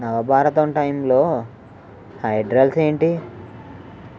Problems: constant background noise